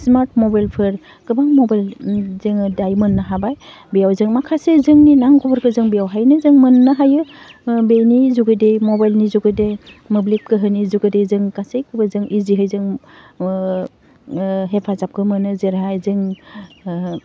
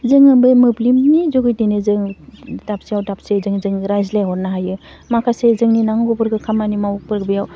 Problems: none marked